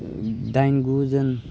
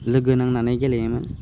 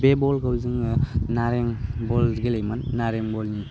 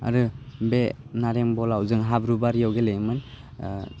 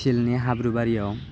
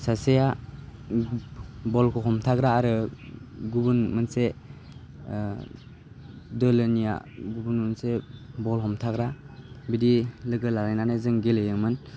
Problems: none marked